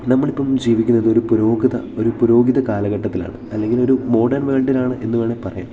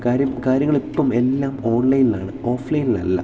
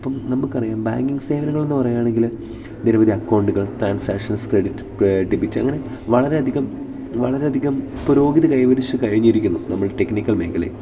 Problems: none marked